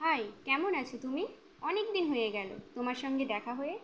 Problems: constant background noise